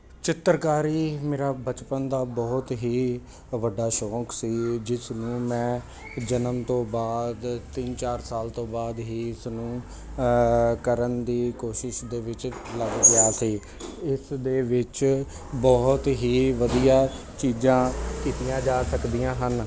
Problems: constant background noise